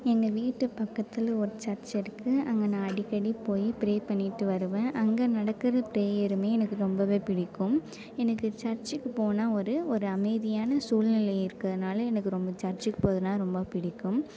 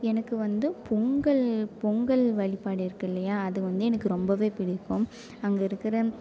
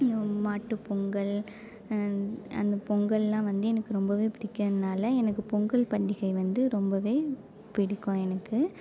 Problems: none marked